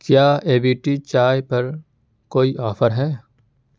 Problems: constant background noise